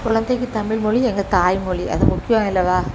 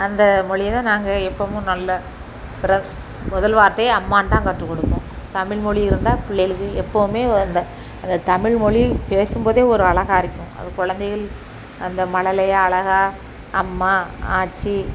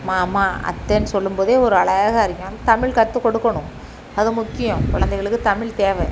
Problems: constant background noise